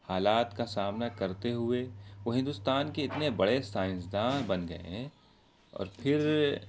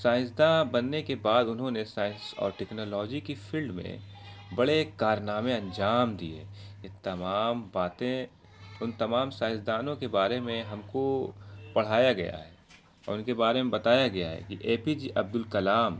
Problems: constant background noise